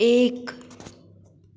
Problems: constant background noise, echo